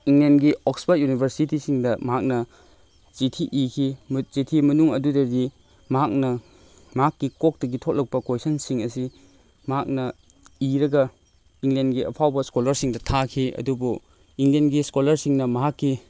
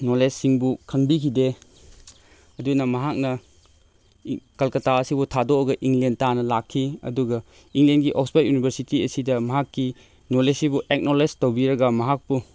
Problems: background sounds at intervals